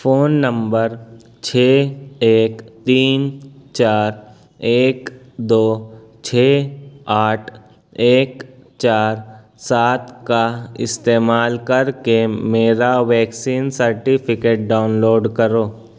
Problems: none marked